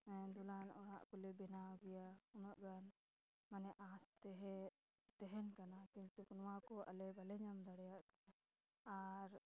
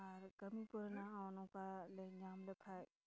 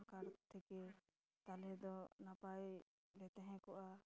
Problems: background sounds at intervals, background conversations at intervals, low volume